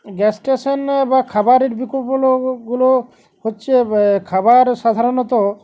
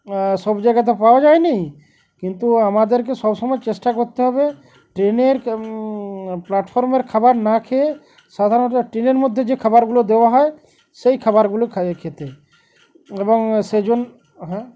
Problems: constant background noise